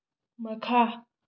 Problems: low volume